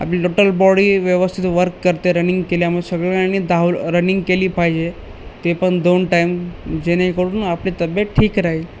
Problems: none marked